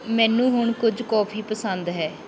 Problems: background sounds at intervals